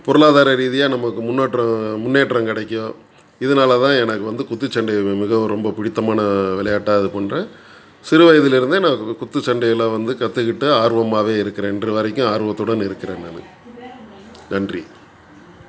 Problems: background sounds at intervals, background conversations at intervals